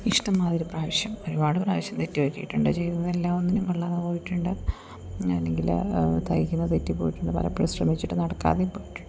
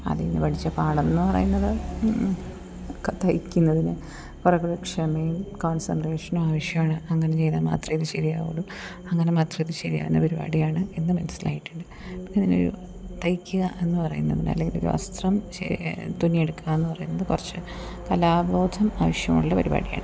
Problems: background sounds at intervals